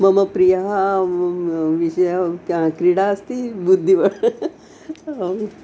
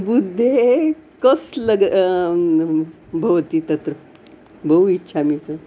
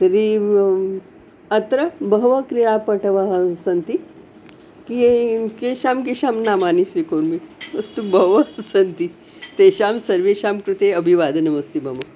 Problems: constant background noise